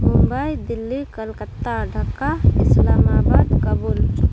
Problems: constant background noise